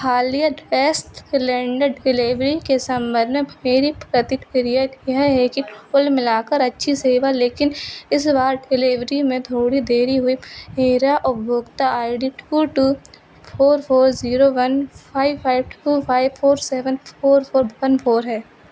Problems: constant background noise